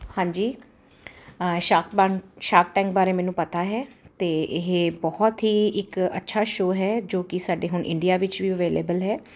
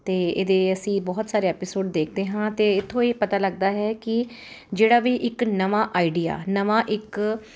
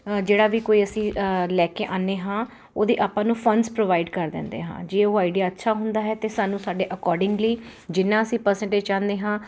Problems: none marked